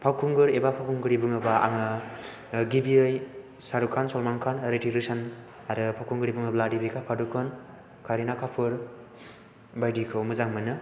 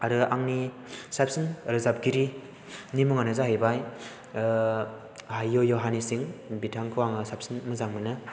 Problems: constant background noise